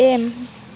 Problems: constant background noise